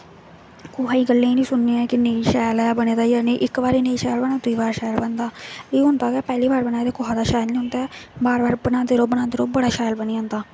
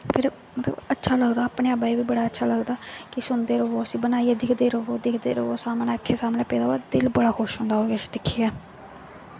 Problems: constant background noise